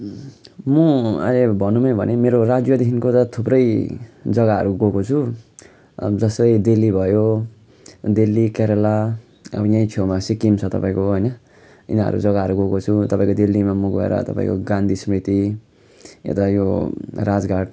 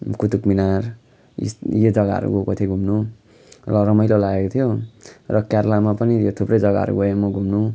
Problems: background sounds at intervals